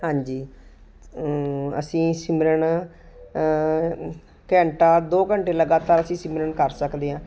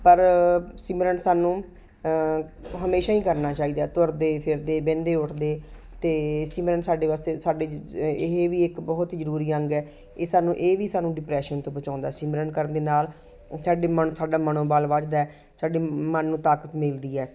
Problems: constant background noise